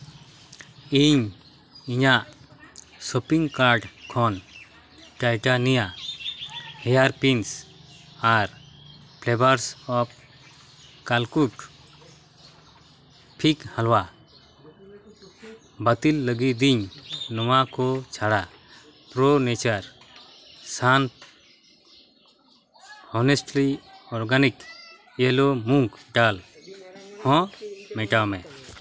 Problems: background sounds at intervals, background conversations at intervals